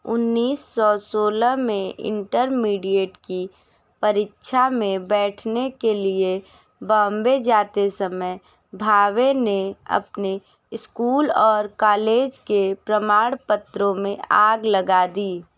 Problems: none marked